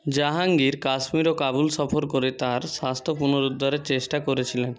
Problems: constant background noise, continuous background conversations